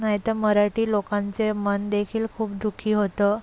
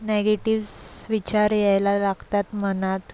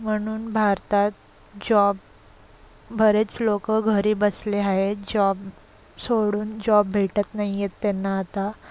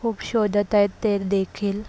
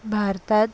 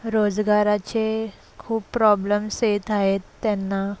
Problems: constant background noise, background conversations at intervals